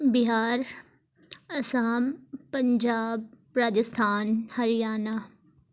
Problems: none marked